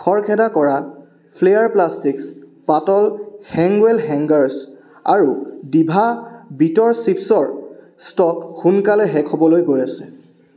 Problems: constant background noise